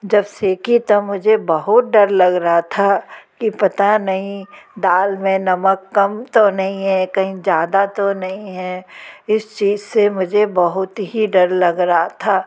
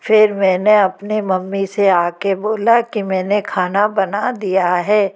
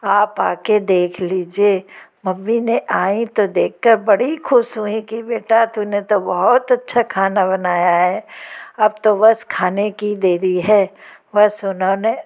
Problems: constant background noise